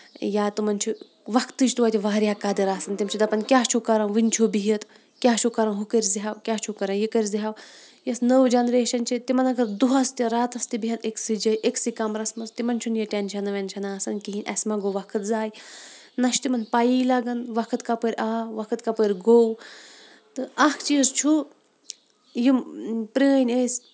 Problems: none marked